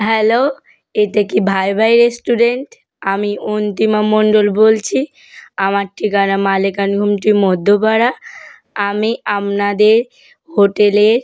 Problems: background sounds at intervals